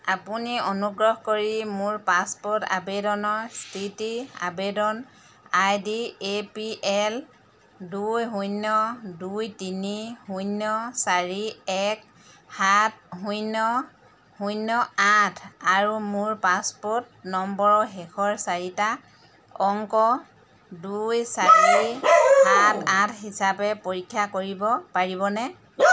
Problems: constant background noise, background conversations at intervals